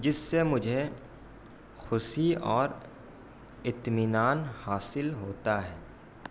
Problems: constant background noise